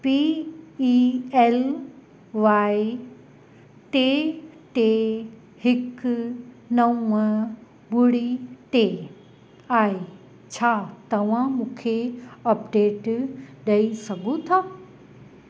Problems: constant background noise, echo